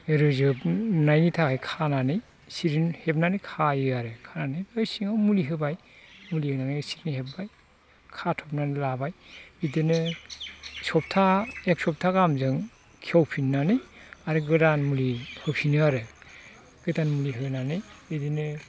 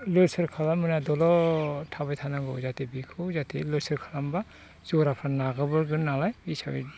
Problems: constant background noise